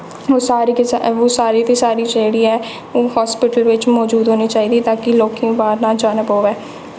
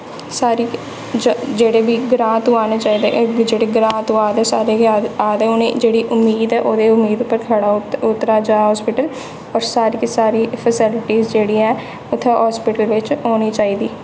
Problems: constant background noise, echo